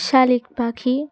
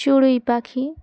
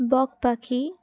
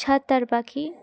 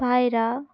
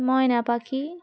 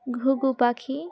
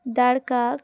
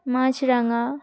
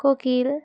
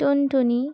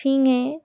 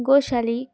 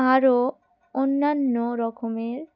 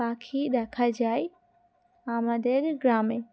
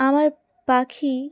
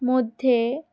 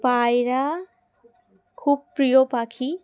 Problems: background sounds at intervals, background conversations at intervals